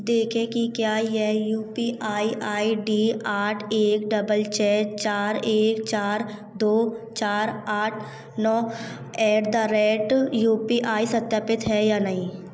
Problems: constant background noise